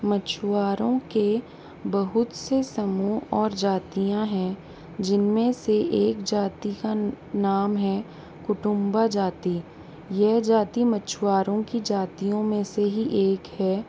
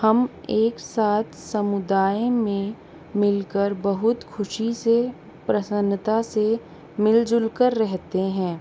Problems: constant background noise